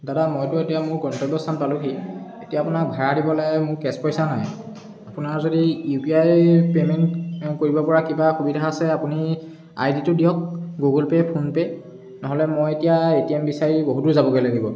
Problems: background sounds at intervals